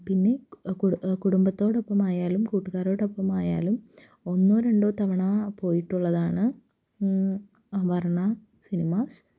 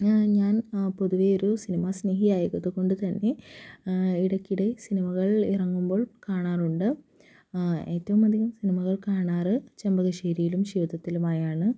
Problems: low volume